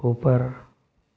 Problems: constant background noise